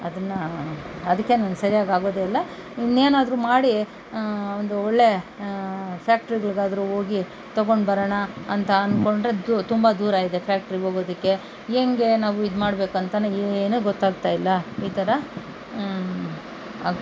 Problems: none marked